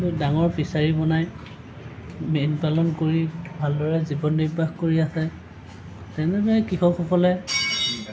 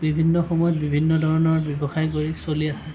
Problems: constant background noise, continuous background conversations